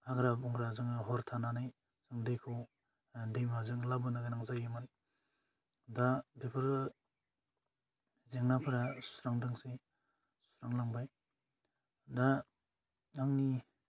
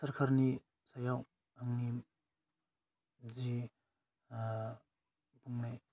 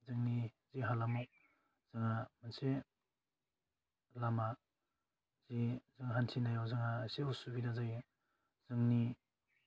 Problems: low volume